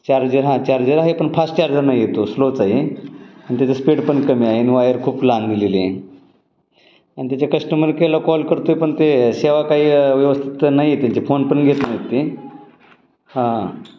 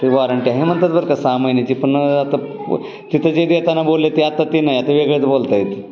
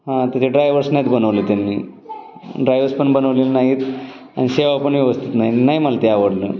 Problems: constant background noise, continuous background conversations